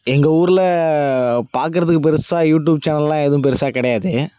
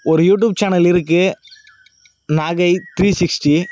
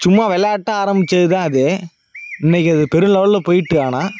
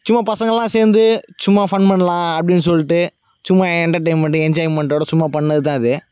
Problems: none marked